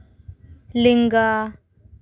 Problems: none marked